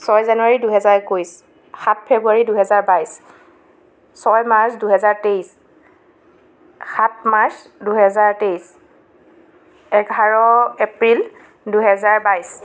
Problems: constant background noise, background conversations at intervals